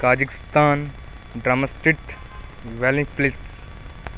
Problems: none marked